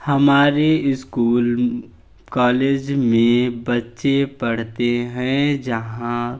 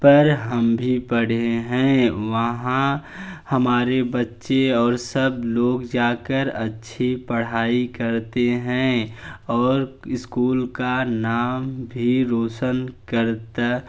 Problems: none marked